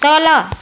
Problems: none marked